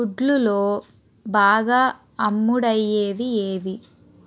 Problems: constant background noise